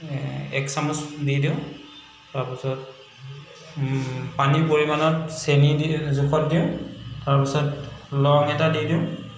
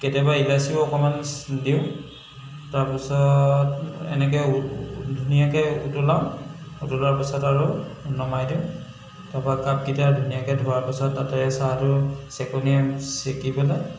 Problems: constant background noise, echo